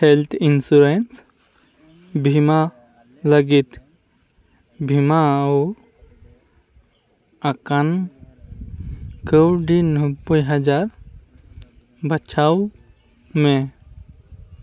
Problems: continuous background conversations